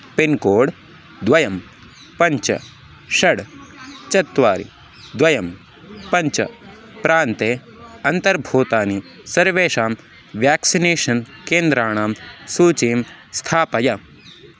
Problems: background sounds at intervals